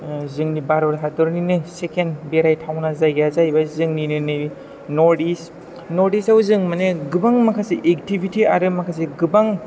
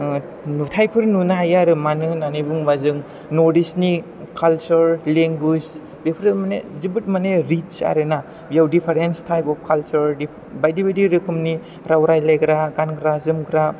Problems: background sounds at intervals